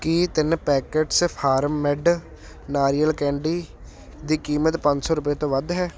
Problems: none marked